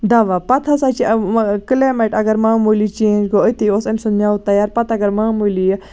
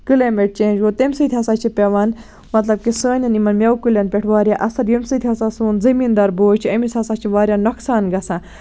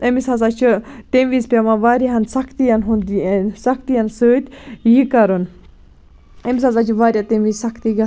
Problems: none marked